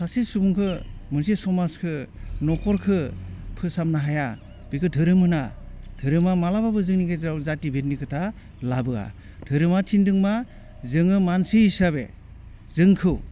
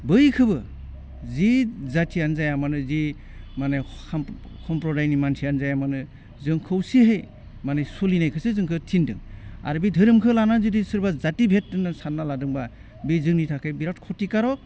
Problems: constant background noise